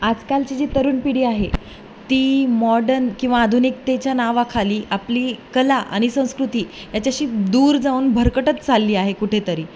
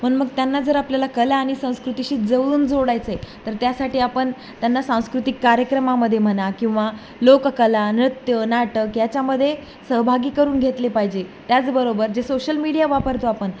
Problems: none marked